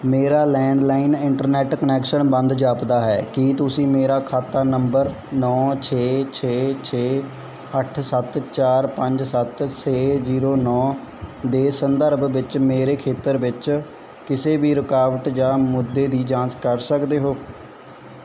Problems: background sounds at intervals